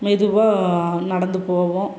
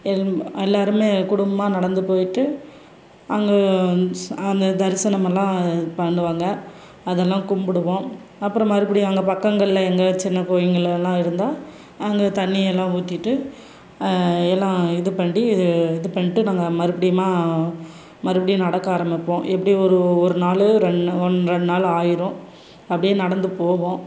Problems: none marked